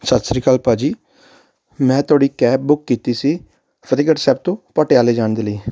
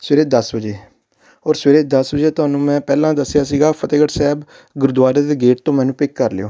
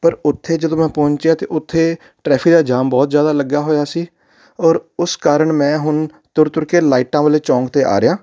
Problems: background sounds at intervals